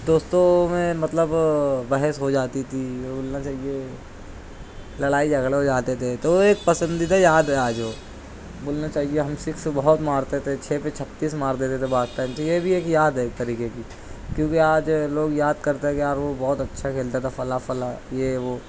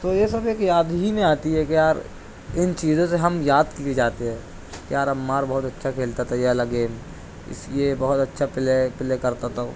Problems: constant background noise